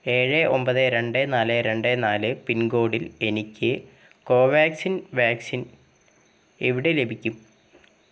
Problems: background sounds at intervals